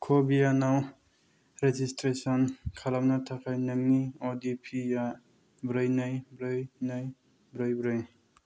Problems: low volume